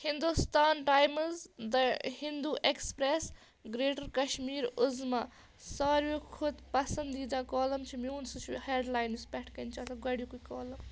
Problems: none marked